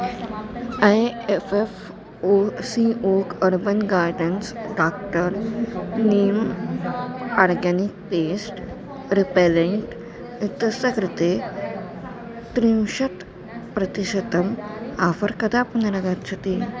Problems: constant background noise, continuous background conversations